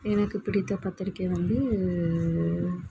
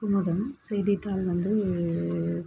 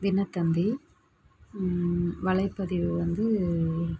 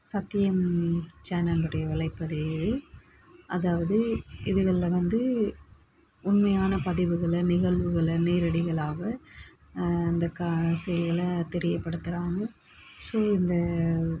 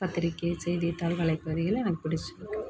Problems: none marked